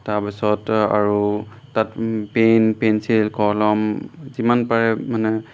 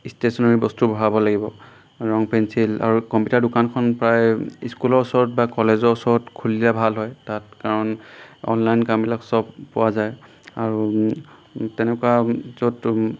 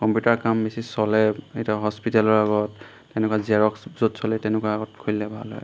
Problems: none marked